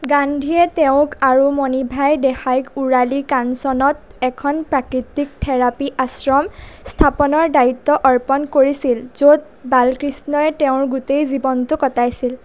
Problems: none marked